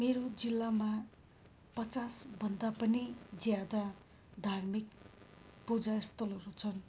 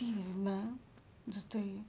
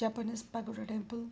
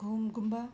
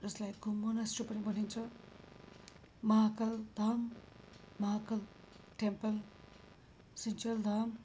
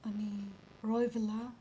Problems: background sounds at intervals